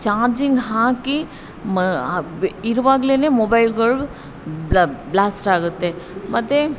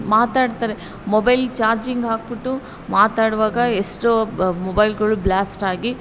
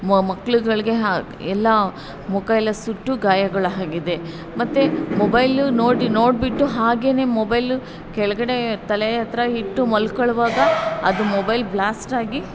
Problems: background sounds at intervals